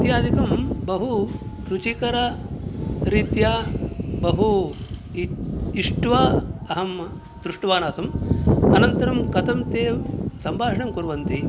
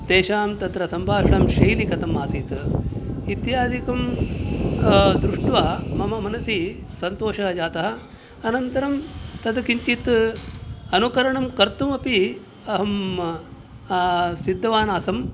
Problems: background sounds at intervals